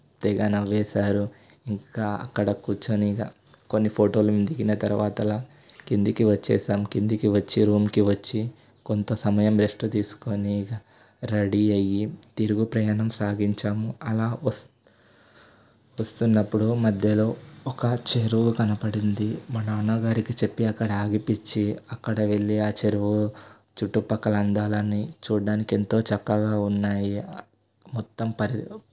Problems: constant background noise